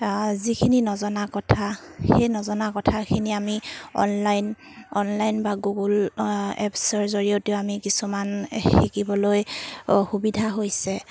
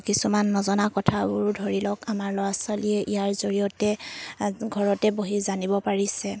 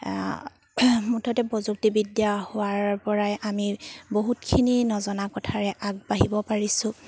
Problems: none marked